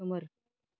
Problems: none marked